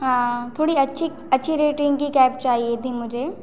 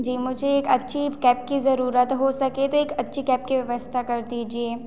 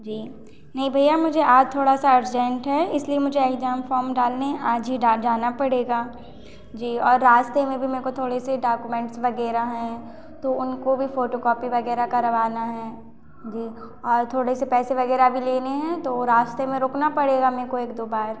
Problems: none marked